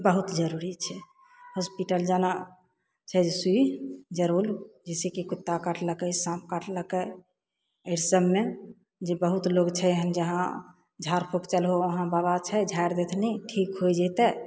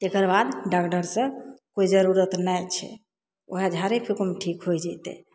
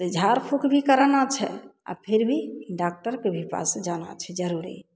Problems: none marked